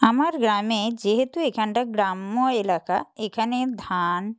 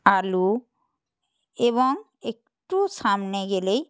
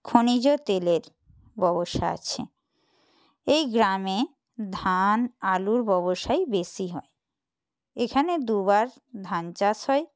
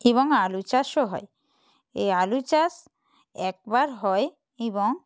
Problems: none marked